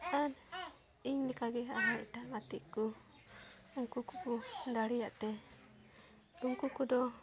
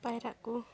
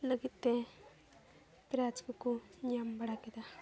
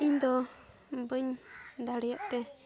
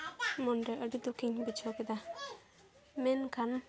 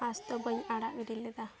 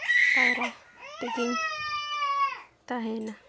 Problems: continuous background conversations